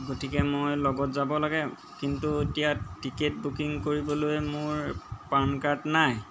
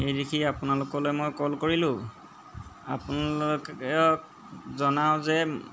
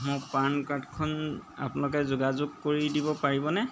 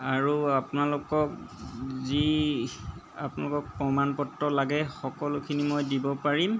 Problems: background sounds at intervals